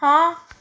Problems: none marked